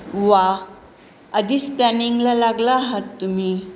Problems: constant background noise